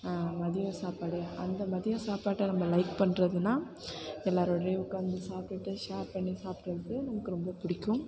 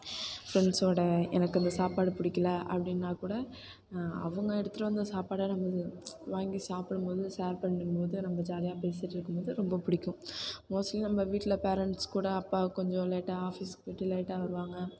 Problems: background sounds at intervals, background conversations at intervals